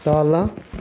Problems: continuous background conversations